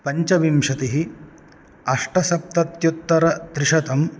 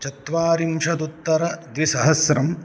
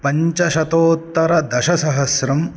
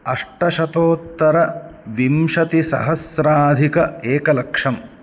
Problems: none marked